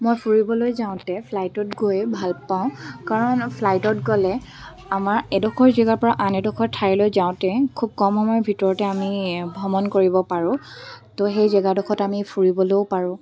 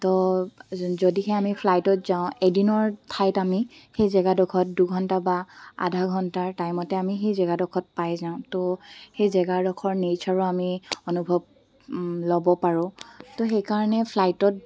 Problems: background sounds at intervals